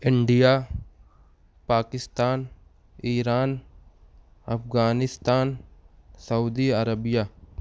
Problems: none marked